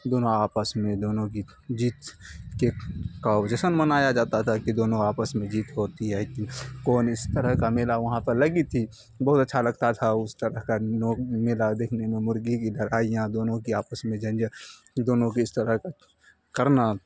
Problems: constant background noise